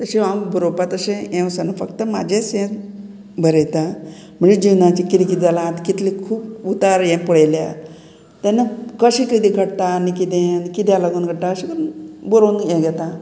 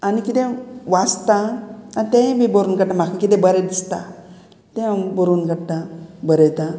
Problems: background conversations at intervals